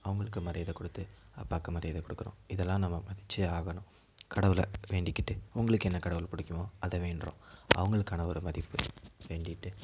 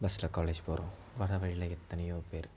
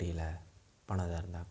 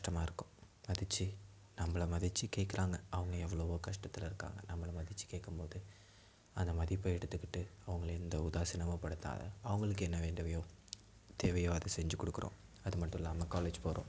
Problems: background sounds at intervals